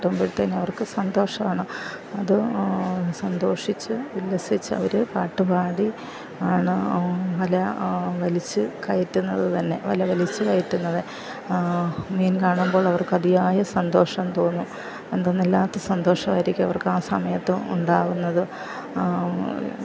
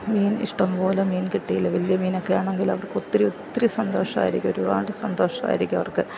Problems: background sounds at intervals, low volume